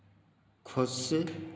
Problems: constant background noise